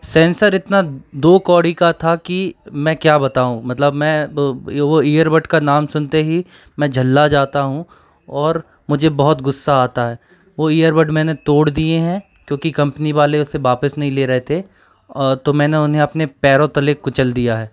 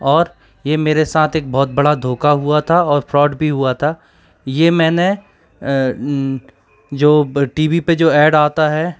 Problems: none marked